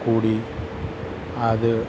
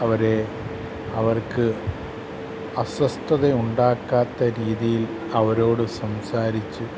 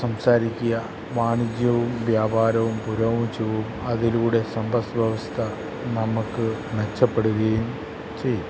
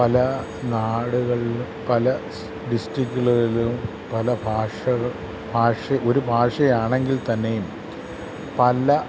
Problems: constant background noise